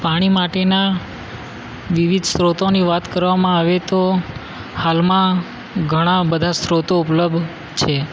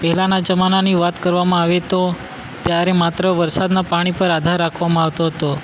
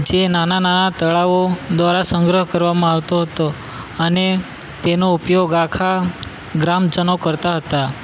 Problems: constant background noise